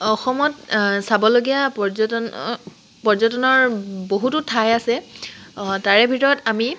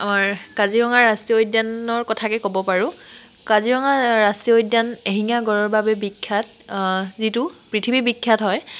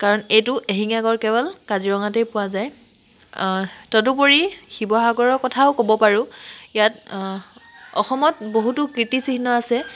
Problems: constant background noise